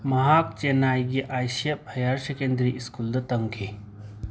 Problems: background sounds at intervals, background conversations at intervals